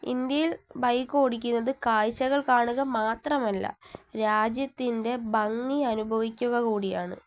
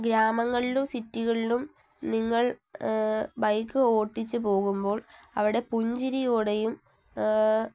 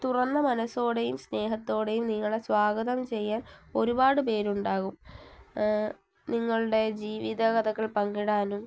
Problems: low volume